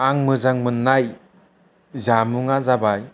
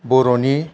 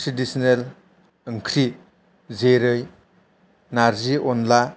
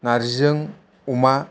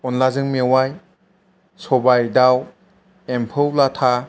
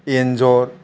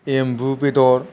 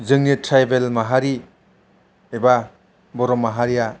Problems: none marked